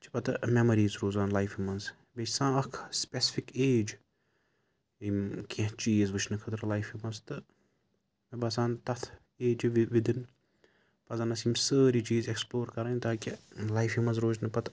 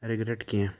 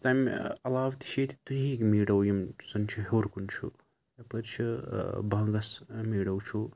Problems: constant background noise